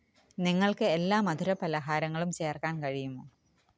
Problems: none marked